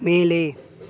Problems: none marked